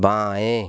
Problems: none marked